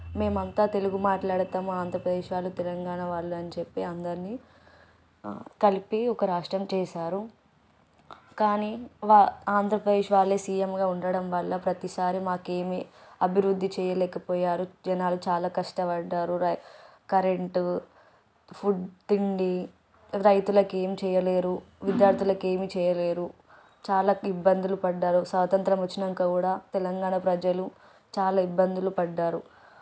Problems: background sounds at intervals